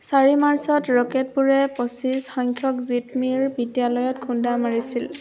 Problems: none marked